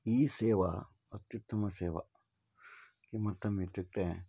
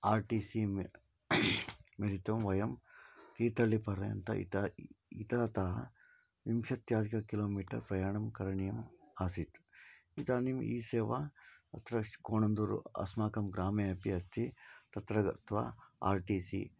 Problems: low volume